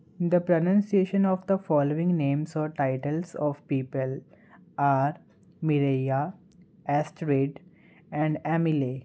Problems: none marked